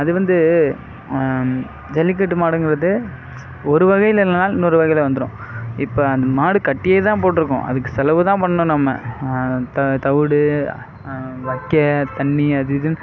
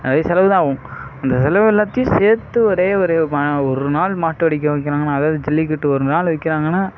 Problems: background sounds at intervals